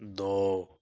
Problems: none marked